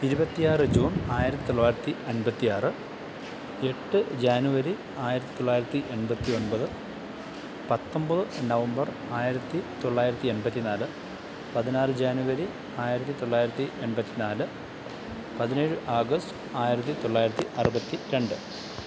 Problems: constant background noise, low volume